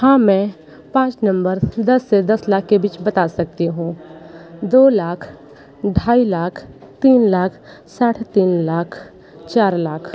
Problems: none marked